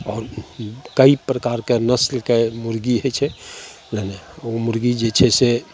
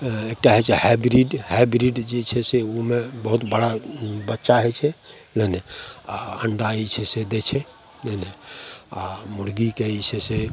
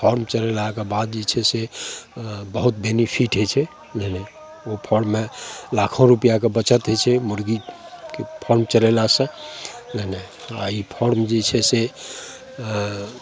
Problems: none marked